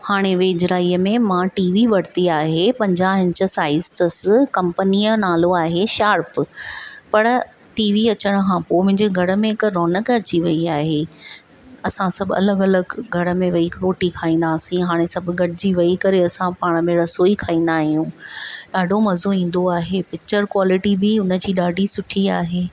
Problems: none marked